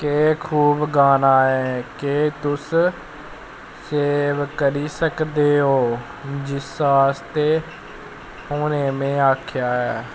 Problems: constant background noise